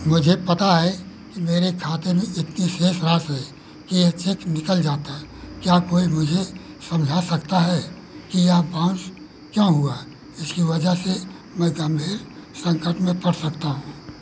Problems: constant background noise